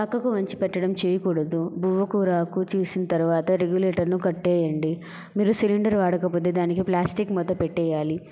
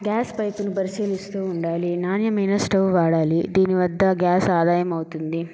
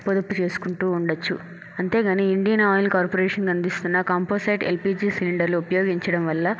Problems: none marked